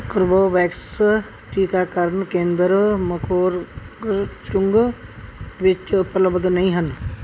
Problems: background sounds at intervals